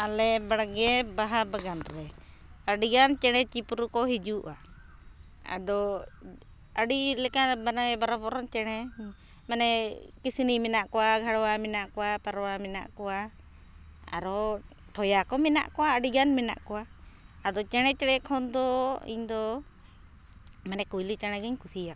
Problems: background sounds at intervals, background conversations at intervals